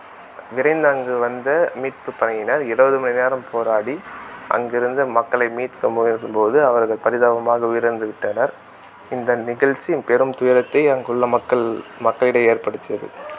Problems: constant background noise